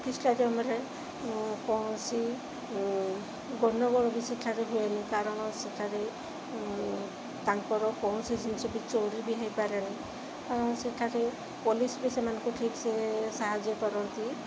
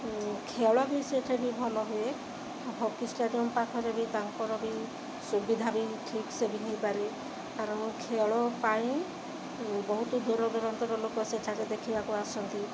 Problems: constant background noise